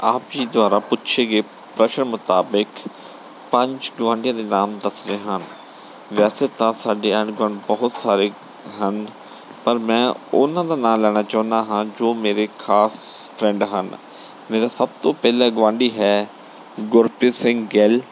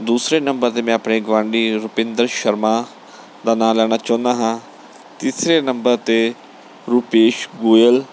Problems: none marked